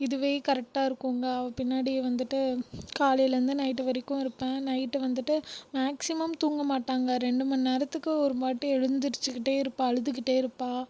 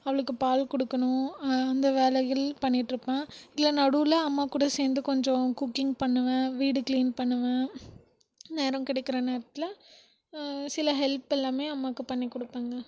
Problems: background sounds at intervals